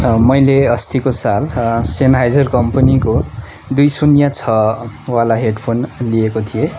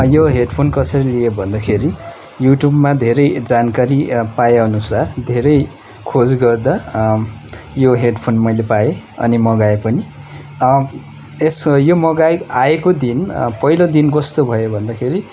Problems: constant background noise